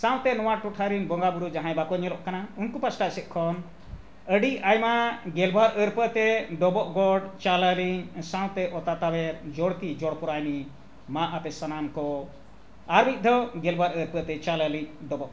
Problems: none marked